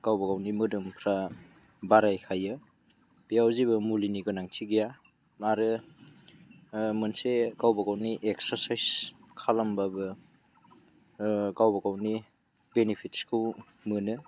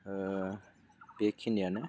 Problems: none marked